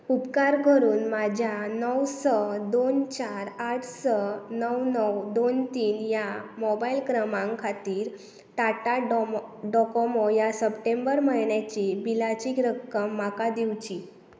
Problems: none marked